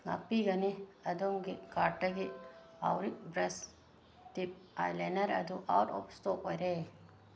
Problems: background sounds at intervals